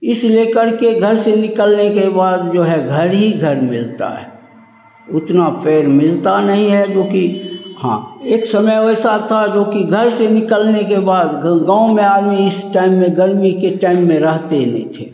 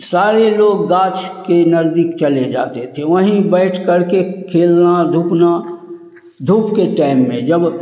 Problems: none marked